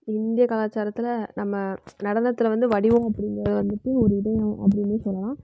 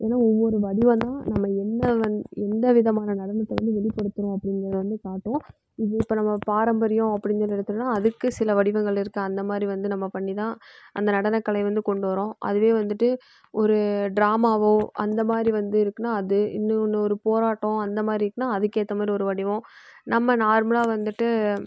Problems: background sounds at intervals, low volume